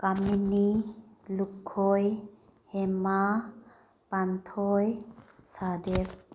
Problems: background sounds at intervals